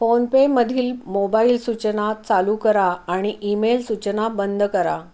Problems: none marked